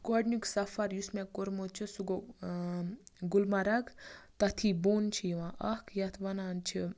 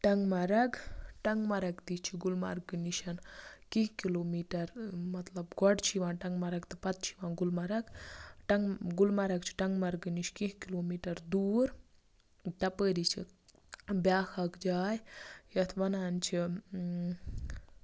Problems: background sounds at intervals